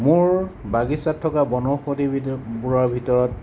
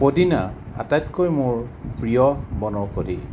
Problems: constant background noise